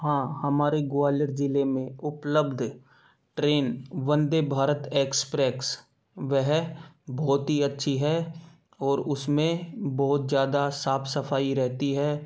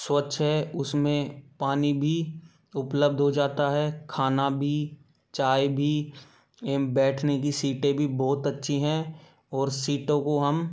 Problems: background sounds at intervals